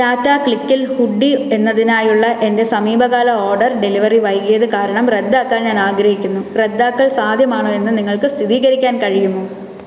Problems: echo